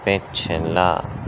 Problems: constant background noise